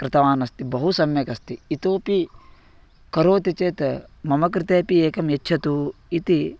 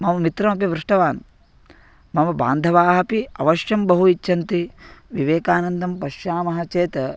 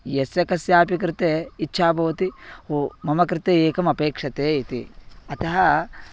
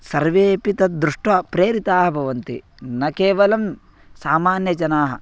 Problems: none marked